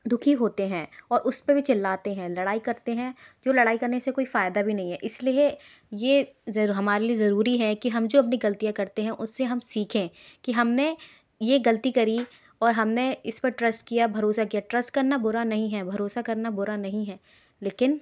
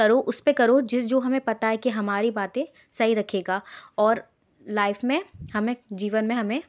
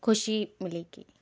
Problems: background sounds at intervals